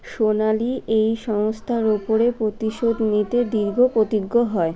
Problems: continuous background conversations